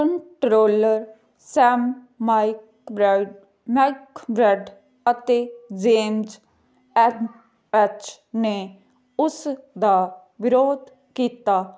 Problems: none marked